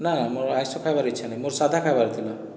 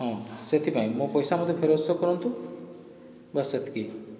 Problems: background sounds at intervals, background conversations at intervals